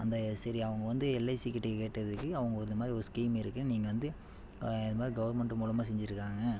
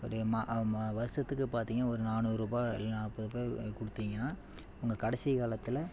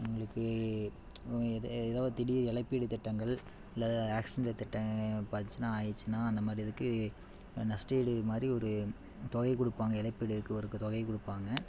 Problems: constant background noise